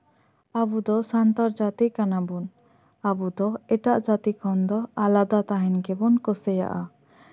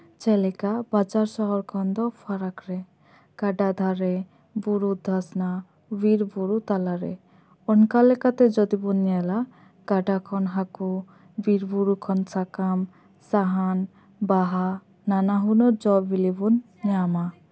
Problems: none marked